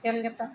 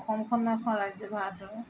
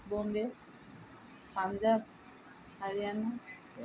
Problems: constant background noise